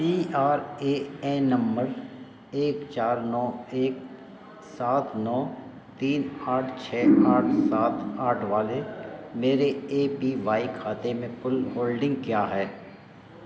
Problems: none marked